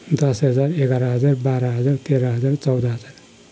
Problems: constant background noise